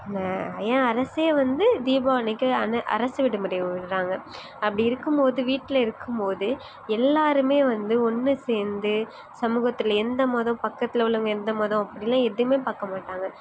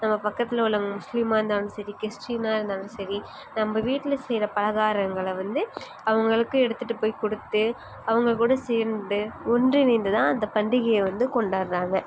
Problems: background sounds at intervals